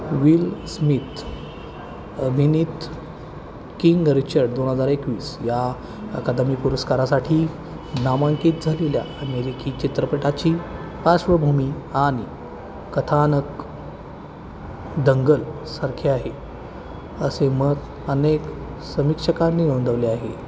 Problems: constant background noise, continuous background conversations